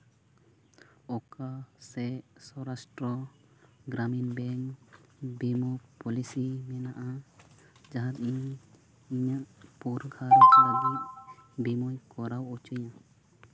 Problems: background sounds at intervals, low volume